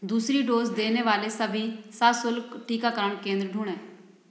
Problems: background sounds at intervals